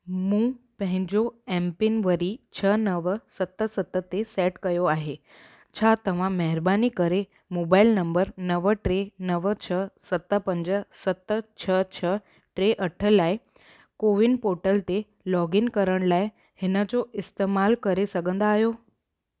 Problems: none marked